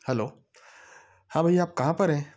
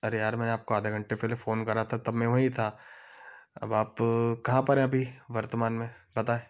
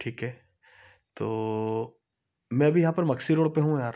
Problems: background sounds at intervals, background conversations at intervals